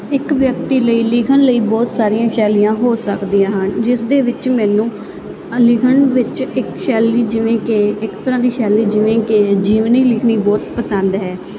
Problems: constant background noise